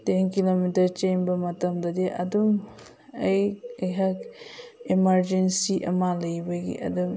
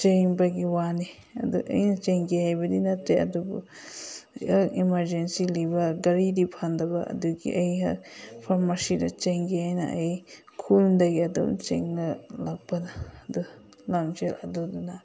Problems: background conversations at intervals